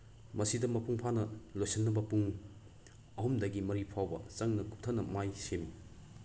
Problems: constant background noise